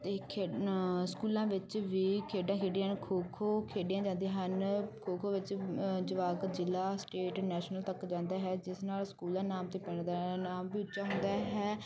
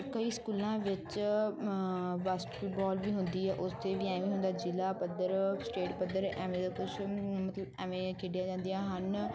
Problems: constant background noise